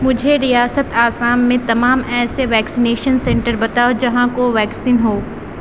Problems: none marked